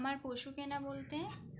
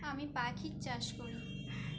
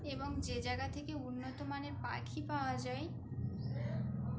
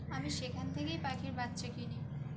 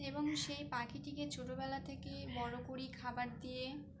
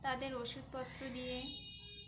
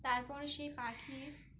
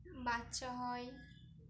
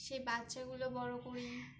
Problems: constant background noise